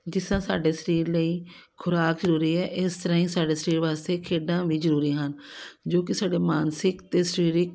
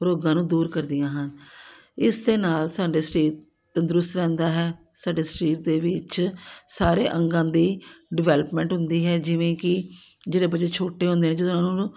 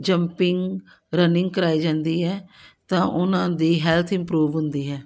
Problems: background sounds at intervals